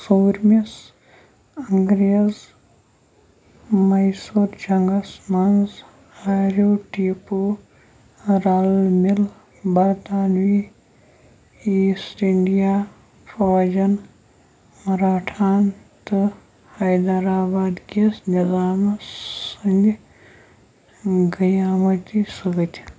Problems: constant background noise